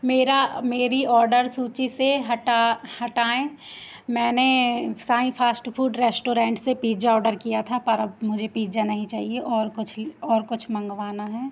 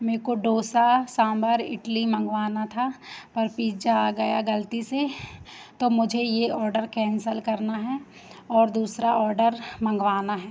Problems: constant background noise